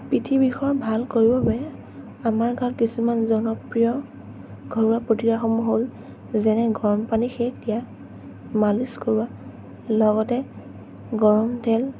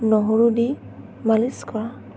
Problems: none marked